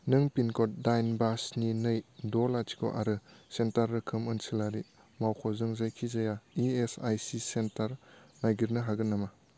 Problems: low volume